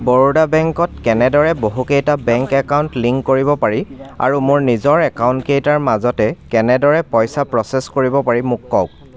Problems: constant background noise, continuous background conversations